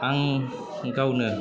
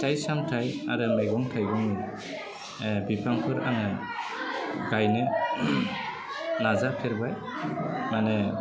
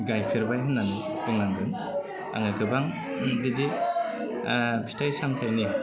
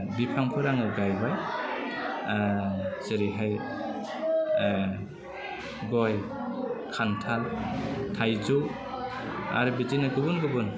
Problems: low volume